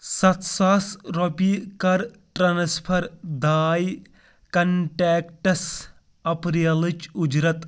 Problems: background sounds at intervals